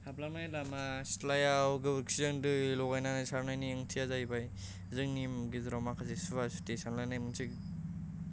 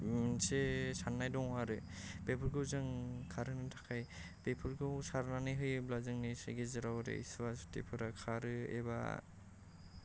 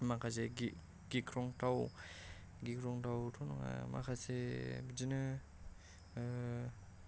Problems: low volume